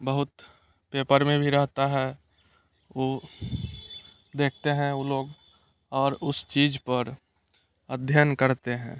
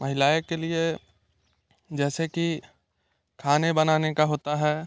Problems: none marked